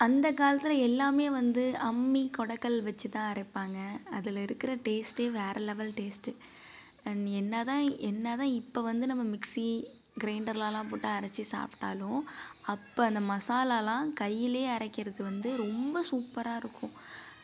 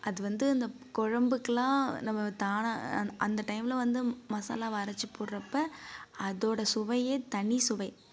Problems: background sounds at intervals, low volume